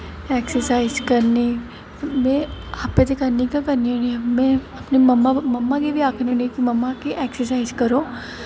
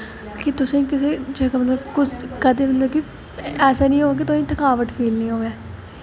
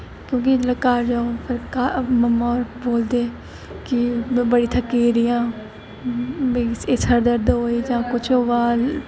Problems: constant background noise